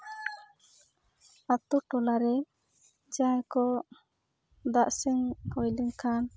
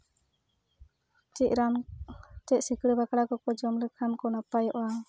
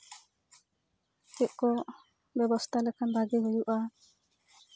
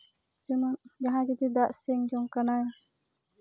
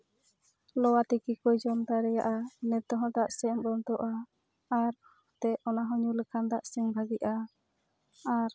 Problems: background sounds at intervals, background conversations at intervals